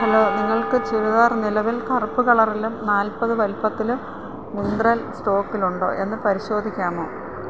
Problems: none marked